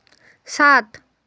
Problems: constant background noise